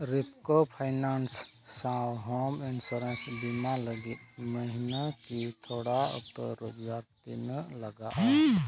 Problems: background sounds at intervals, low volume